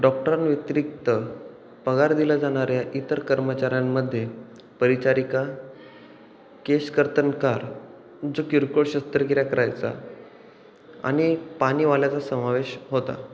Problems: none marked